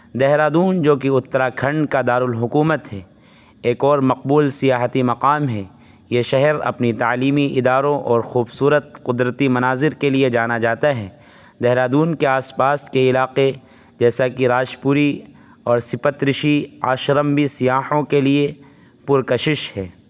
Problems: constant background noise